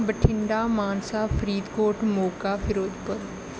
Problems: none marked